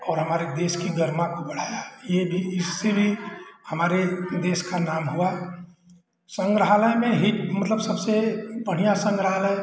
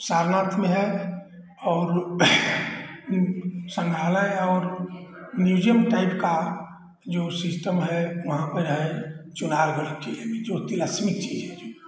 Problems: none marked